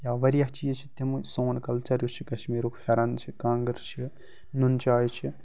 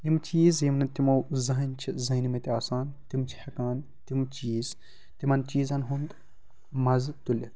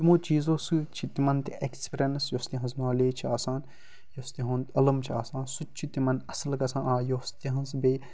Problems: constant background noise